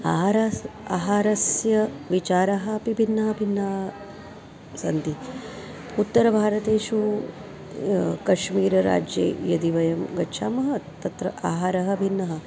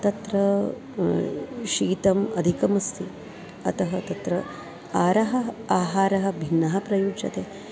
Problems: none marked